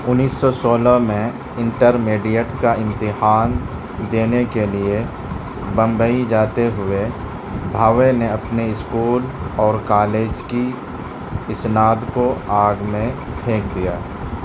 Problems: constant background noise, low volume